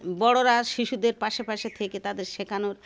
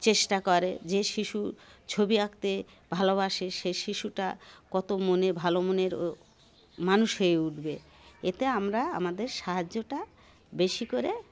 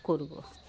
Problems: none marked